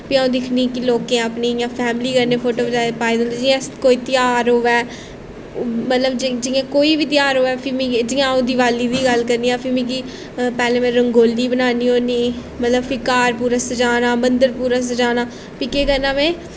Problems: constant background noise